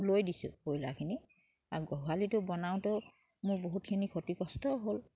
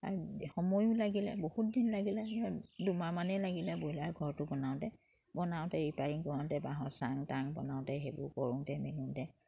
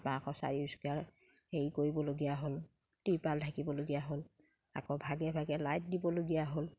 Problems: background sounds at intervals